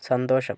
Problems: none marked